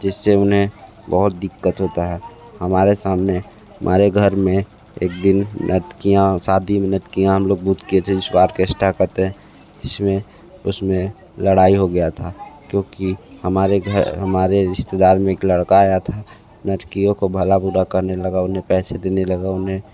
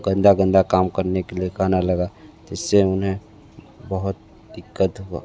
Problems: background sounds at intervals, background conversations at intervals